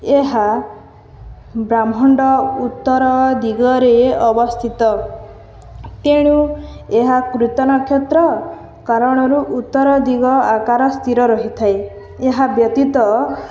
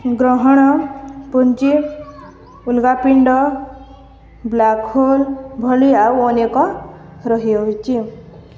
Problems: none marked